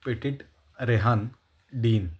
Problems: none marked